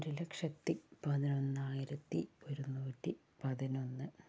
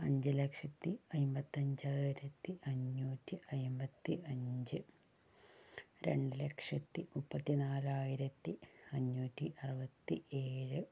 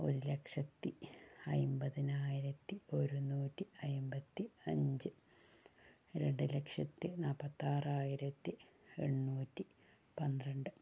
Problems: low volume